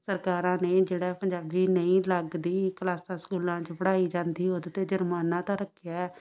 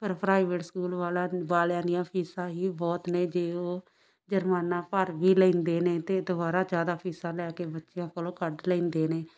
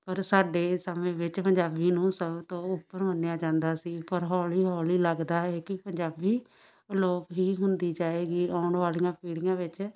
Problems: background sounds at intervals, background conversations at intervals